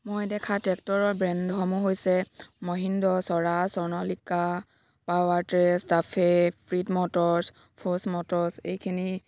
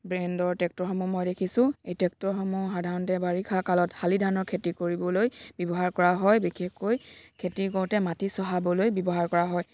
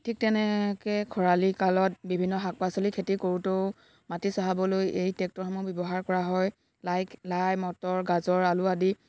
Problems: none marked